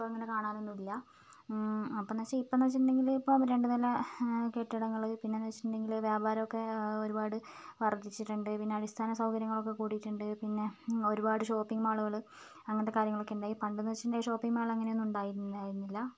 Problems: low volume